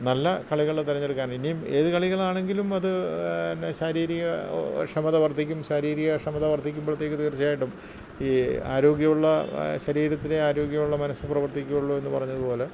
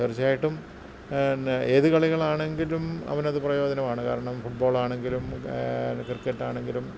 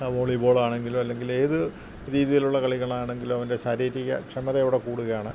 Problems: constant background noise, low volume